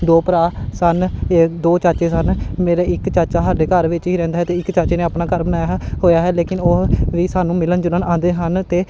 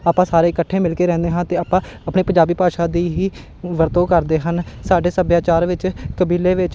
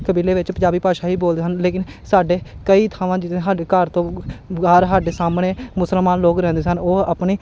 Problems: none marked